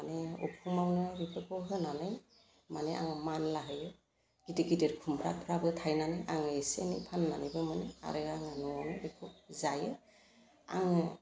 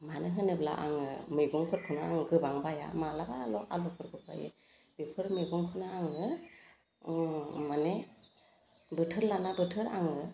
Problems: constant background noise